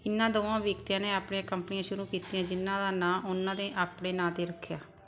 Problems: constant background noise